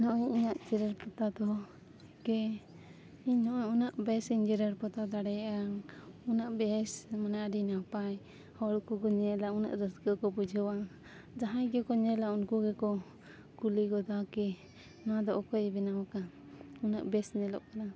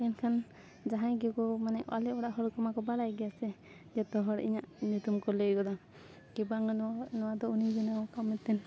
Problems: background sounds at intervals